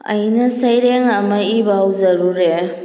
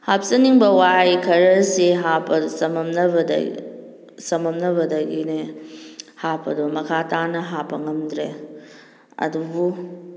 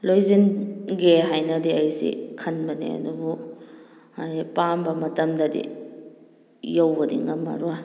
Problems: background conversations at intervals